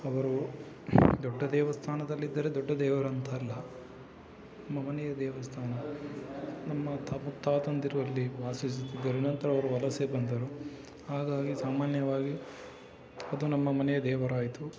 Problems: constant background noise